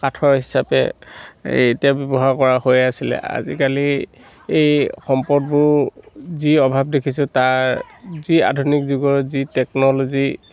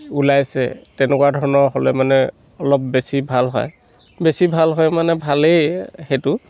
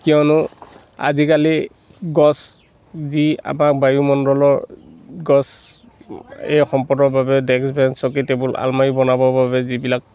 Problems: none marked